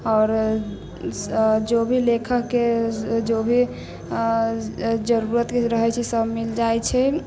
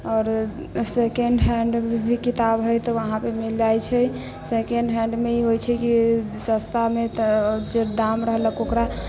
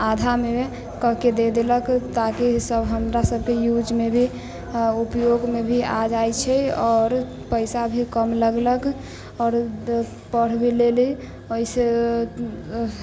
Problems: none marked